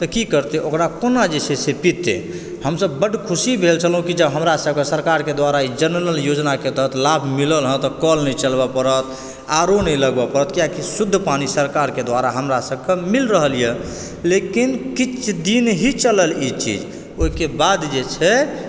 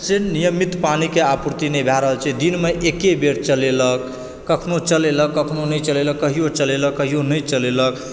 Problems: background sounds at intervals